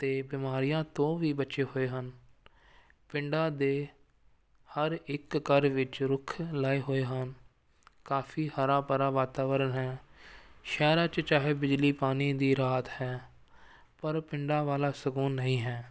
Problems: none marked